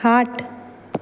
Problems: background sounds at intervals